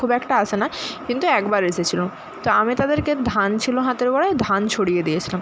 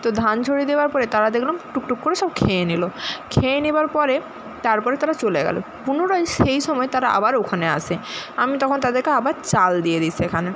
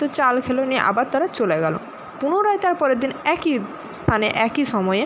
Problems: constant background noise